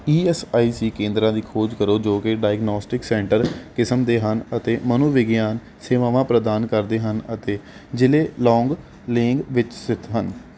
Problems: background sounds at intervals